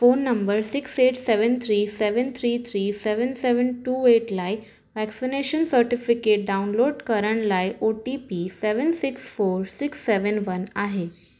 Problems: none marked